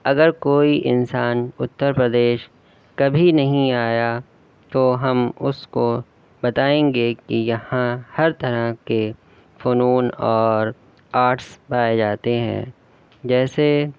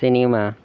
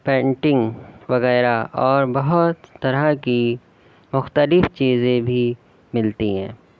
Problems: constant background noise